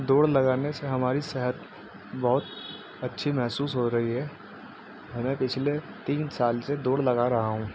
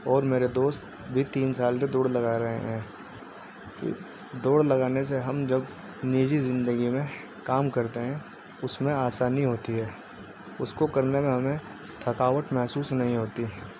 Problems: constant background noise